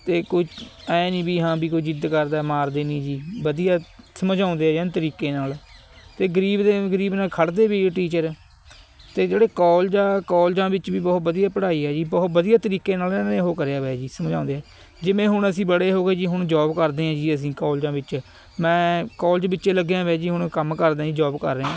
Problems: constant background noise